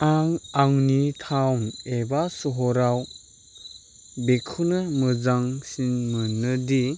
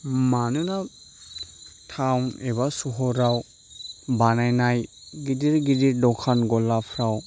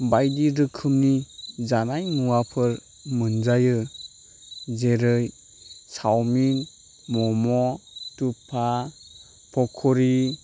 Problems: constant background noise